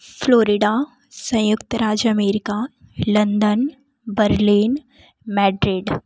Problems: background sounds at intervals